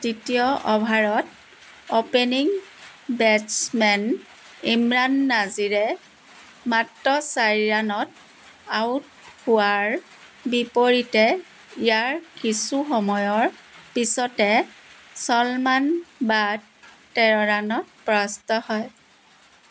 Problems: constant background noise